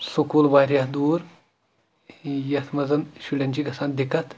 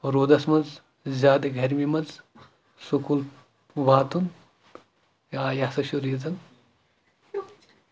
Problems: background sounds at intervals, background conversations at intervals